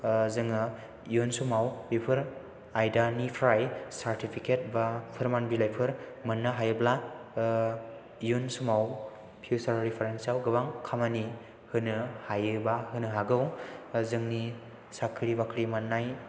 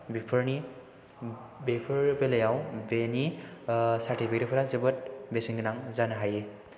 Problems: none marked